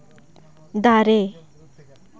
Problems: continuous background conversations